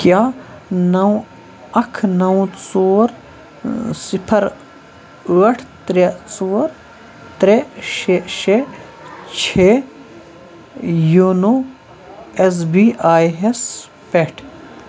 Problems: constant background noise, background conversations at intervals